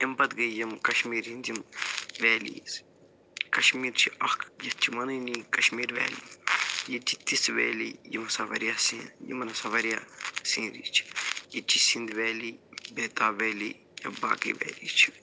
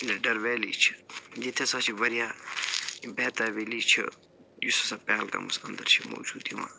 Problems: none marked